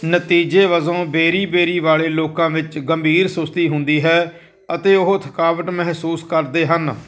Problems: none marked